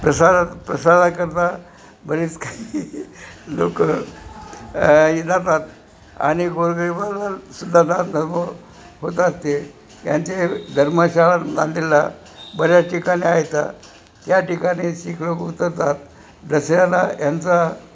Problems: constant background noise